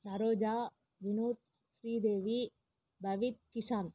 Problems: low volume